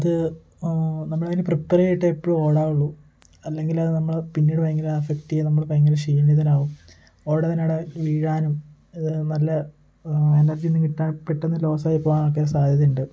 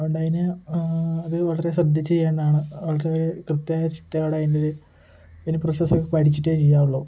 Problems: constant background noise, low volume